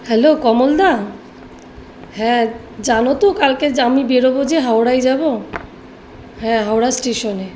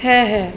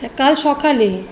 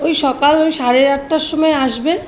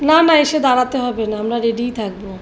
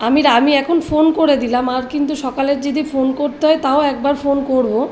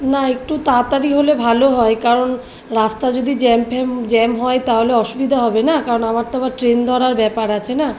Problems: background sounds at intervals